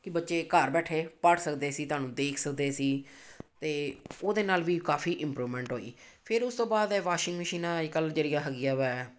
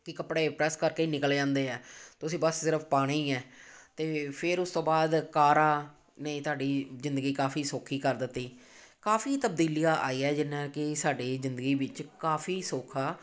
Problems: background sounds at intervals